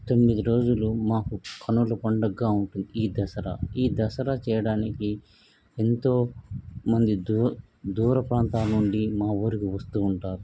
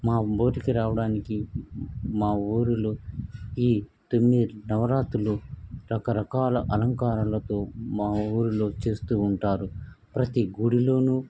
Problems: background sounds at intervals